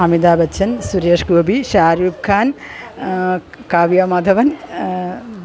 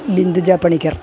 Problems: constant background noise